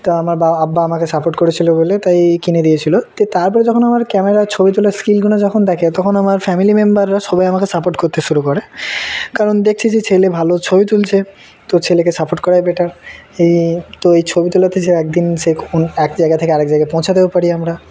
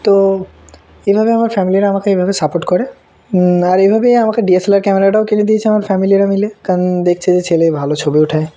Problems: background sounds at intervals